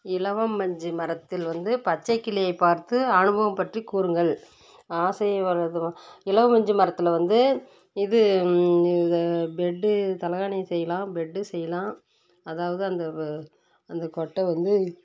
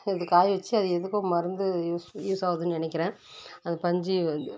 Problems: constant background noise